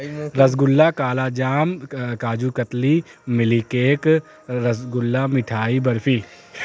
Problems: constant background noise